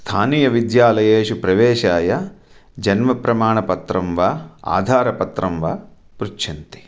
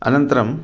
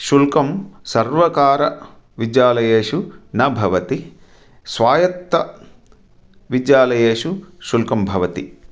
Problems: none marked